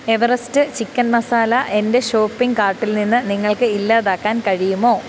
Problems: constant background noise